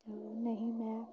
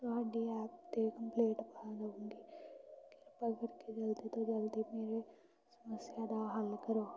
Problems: constant background noise